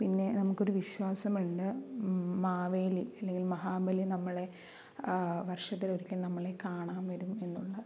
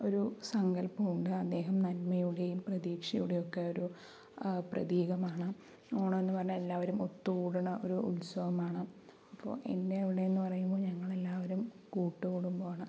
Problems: low volume